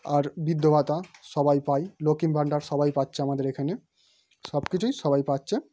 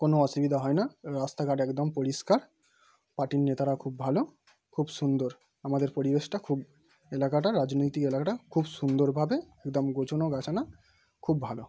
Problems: background sounds at intervals